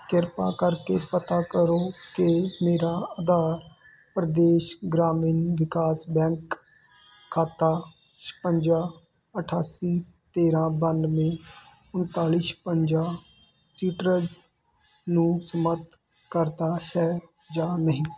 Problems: constant background noise